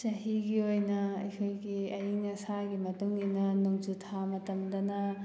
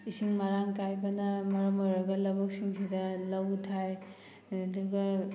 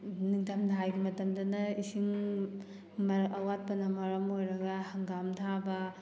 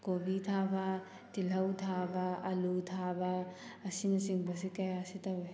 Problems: background sounds at intervals